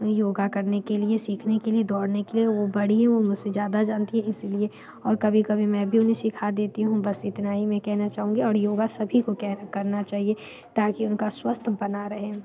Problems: background sounds at intervals, background conversations at intervals